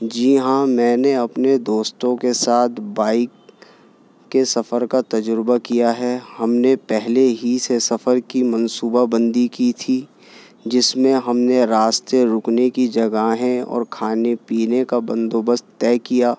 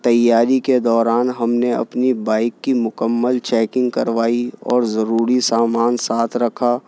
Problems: constant background noise